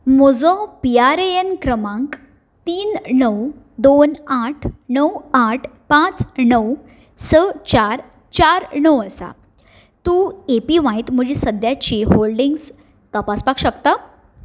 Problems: none marked